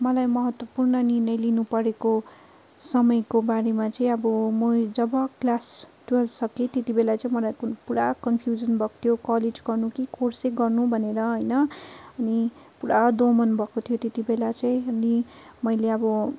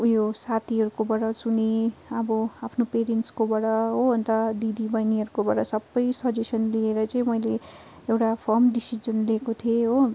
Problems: constant background noise